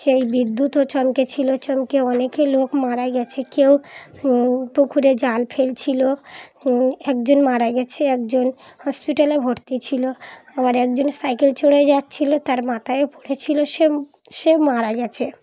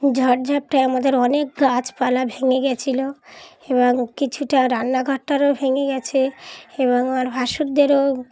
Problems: background sounds at intervals, background conversations at intervals